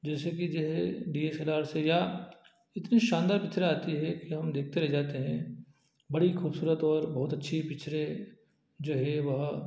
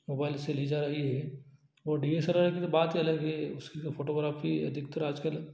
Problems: low volume